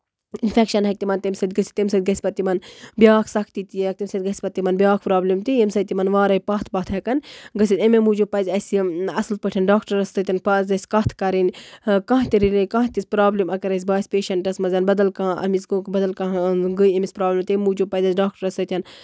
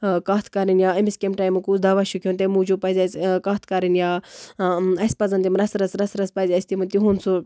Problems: constant background noise